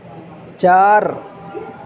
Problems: constant background noise